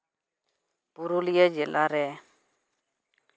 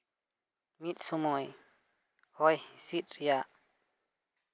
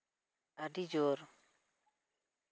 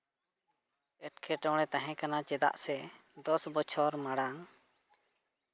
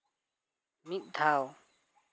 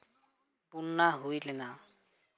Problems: background sounds at intervals, background conversations at intervals